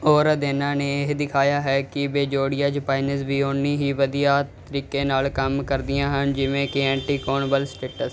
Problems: none marked